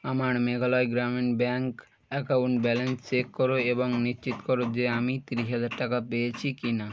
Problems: continuous background conversations